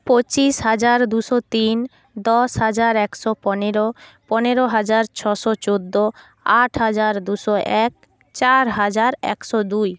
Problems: background sounds at intervals